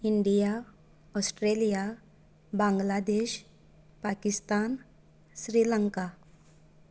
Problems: none marked